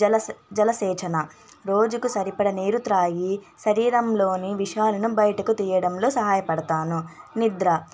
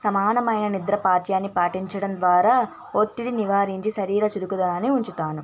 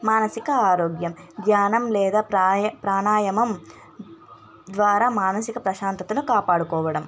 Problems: constant background noise, background conversations at intervals